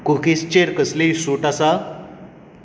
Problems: constant background noise